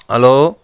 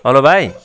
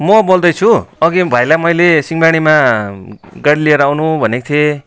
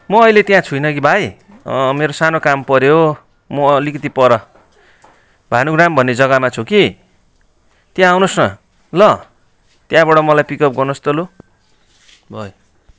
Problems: continuous background conversations